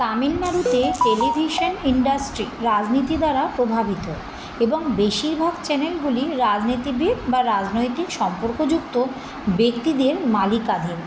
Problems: constant background noise